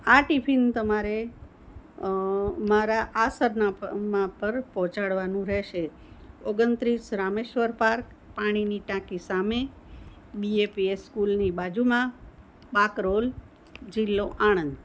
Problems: none marked